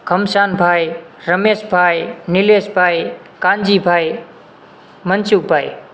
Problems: constant background noise